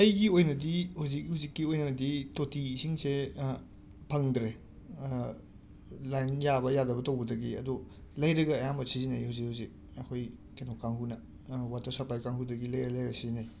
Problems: none marked